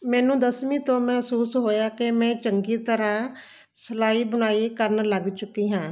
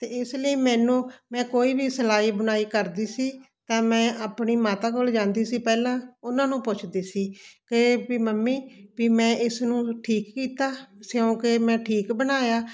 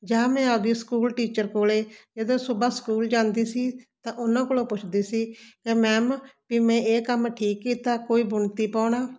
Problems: constant background noise